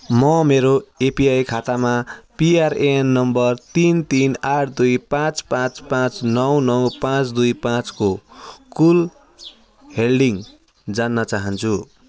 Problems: background sounds at intervals